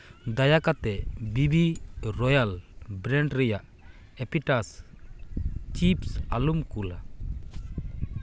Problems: background sounds at intervals